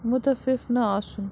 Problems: constant background noise